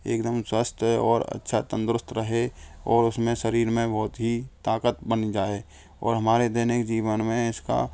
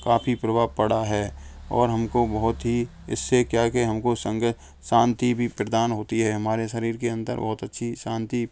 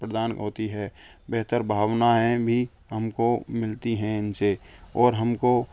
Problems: none marked